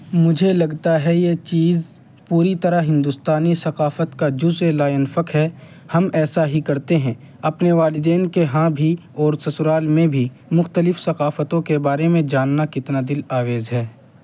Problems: constant background noise